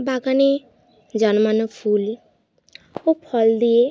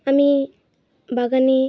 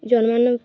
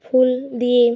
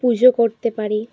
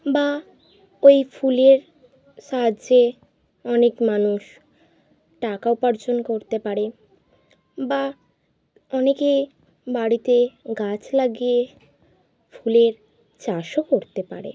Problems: none marked